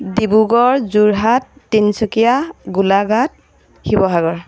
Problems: background sounds at intervals